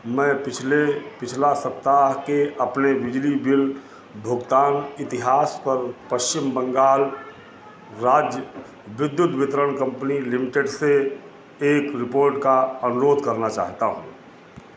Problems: constant background noise, background conversations at intervals